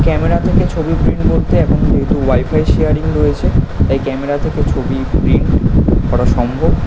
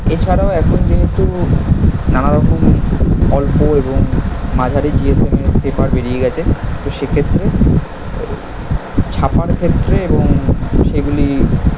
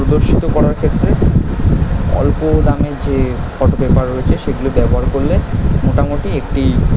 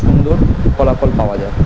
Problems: none marked